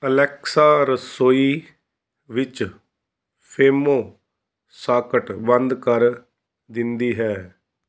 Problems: background sounds at intervals